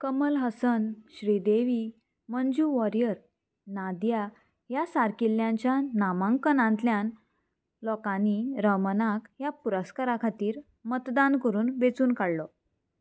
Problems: constant background noise